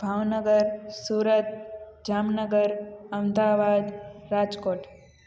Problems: constant background noise, echo